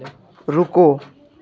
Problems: constant background noise, background conversations at intervals